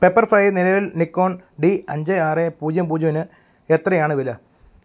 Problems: background sounds at intervals